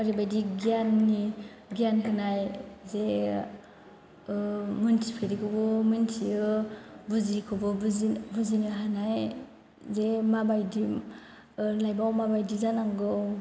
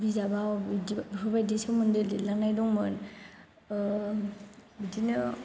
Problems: background sounds at intervals